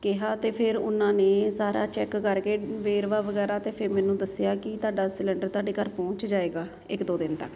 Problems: constant background noise